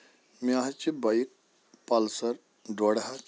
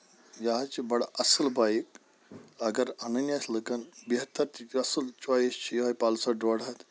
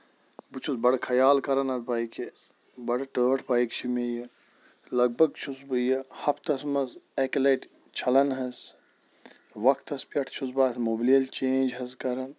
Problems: none marked